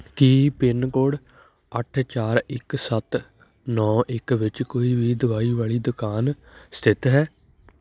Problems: background sounds at intervals, background conversations at intervals